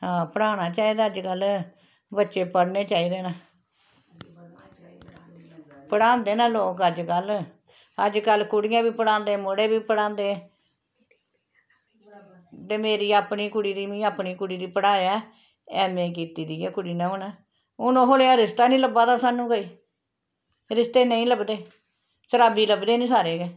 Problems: constant background noise